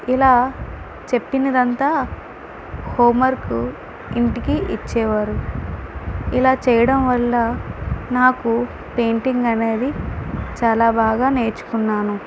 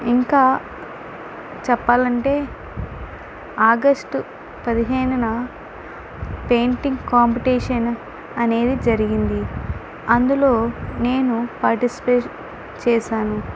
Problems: constant background noise